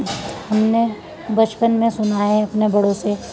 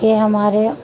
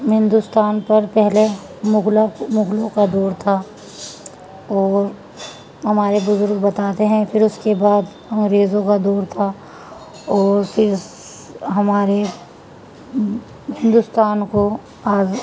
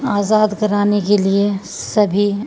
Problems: constant background noise